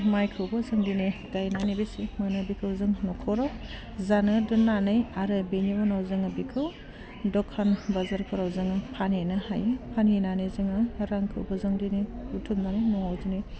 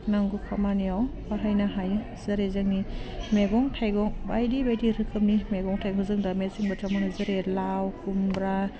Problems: low volume